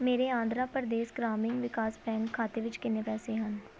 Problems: background conversations at intervals